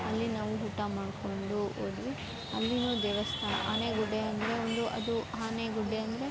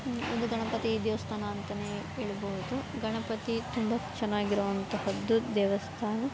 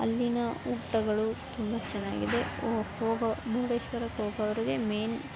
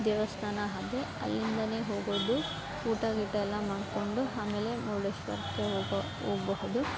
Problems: background sounds at intervals, background conversations at intervals